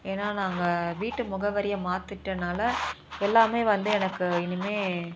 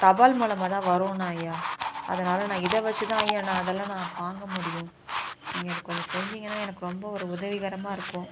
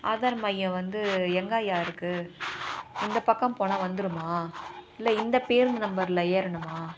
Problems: constant background noise, continuous background conversations